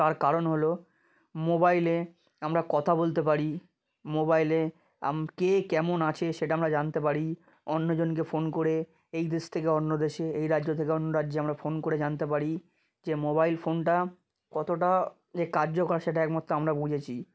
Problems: none marked